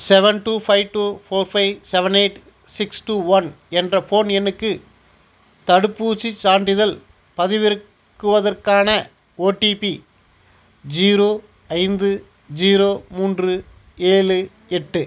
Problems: none marked